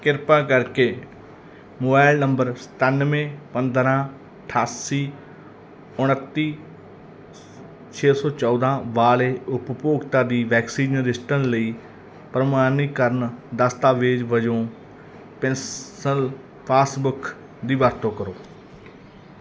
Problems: background sounds at intervals